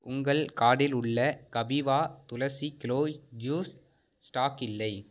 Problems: none marked